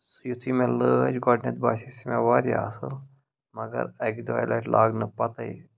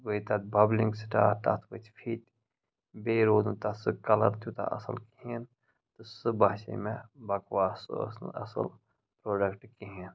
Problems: background sounds at intervals, low volume